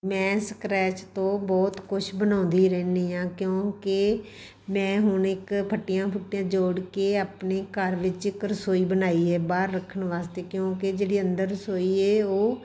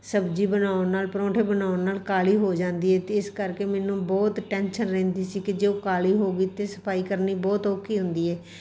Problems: none marked